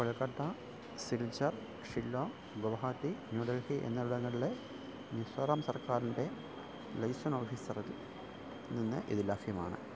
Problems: constant background noise, low volume